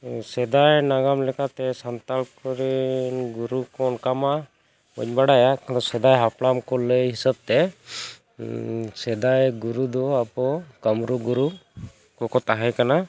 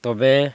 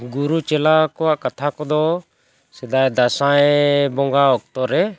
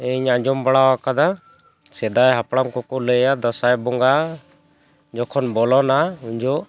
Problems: background sounds at intervals